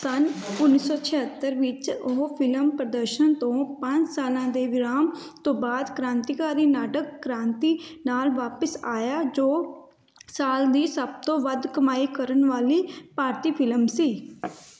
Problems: background sounds at intervals, background conversations at intervals